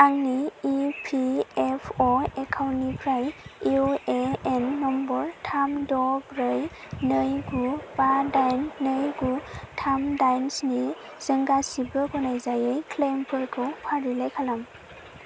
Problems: constant background noise